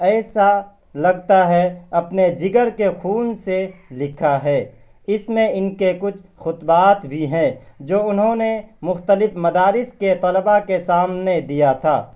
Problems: constant background noise